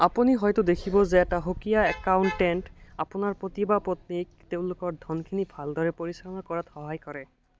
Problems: constant background noise